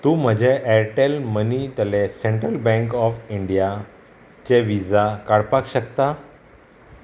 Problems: none marked